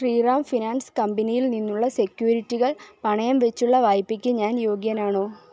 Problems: low volume